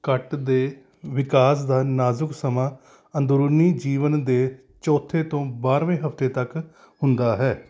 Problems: background sounds at intervals